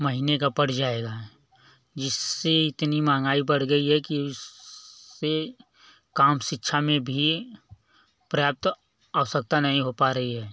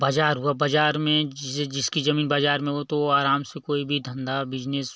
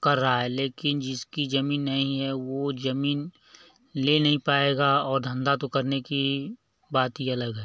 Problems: none marked